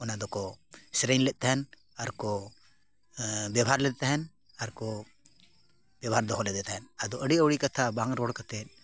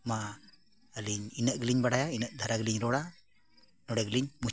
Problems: none marked